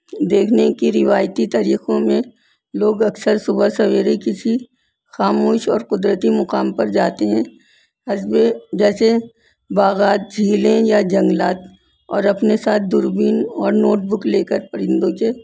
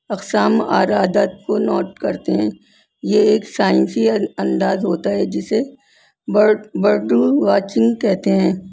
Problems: constant background noise